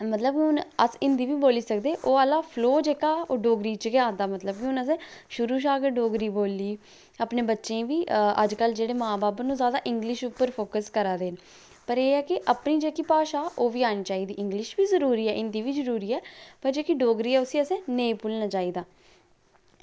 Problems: low volume